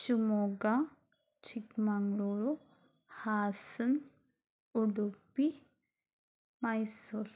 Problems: low volume